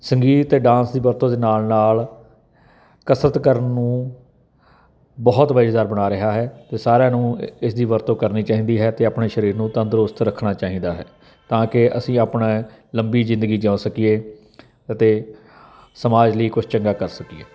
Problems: constant background noise